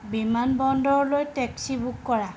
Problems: constant background noise